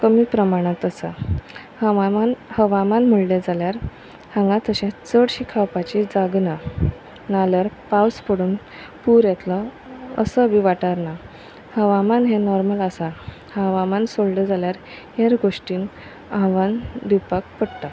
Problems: constant background noise